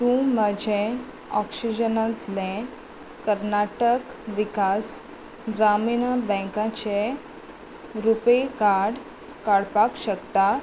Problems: constant background noise